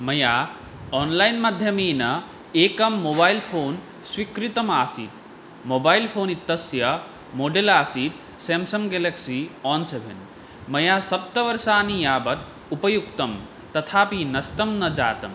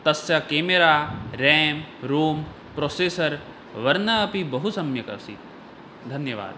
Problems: none marked